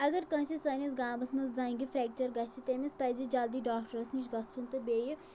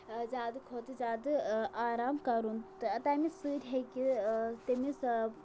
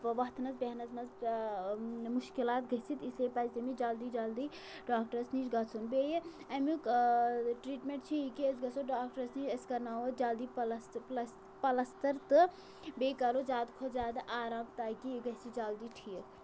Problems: constant background noise